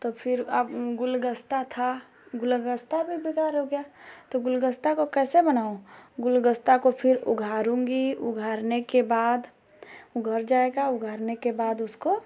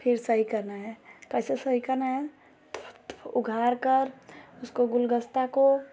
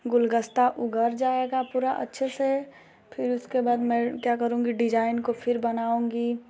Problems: constant background noise